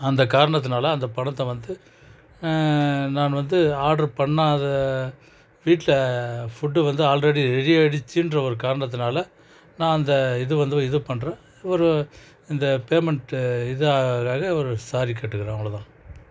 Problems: none marked